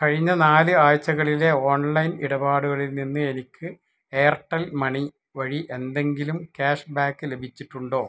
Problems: none marked